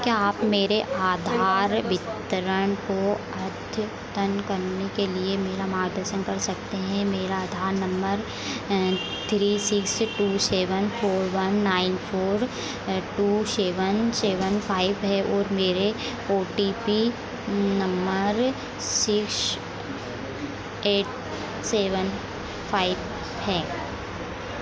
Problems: none marked